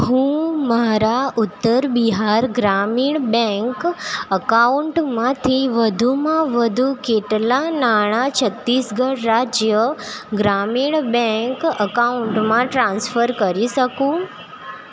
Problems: constant background noise